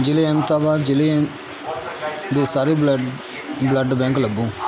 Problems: constant background noise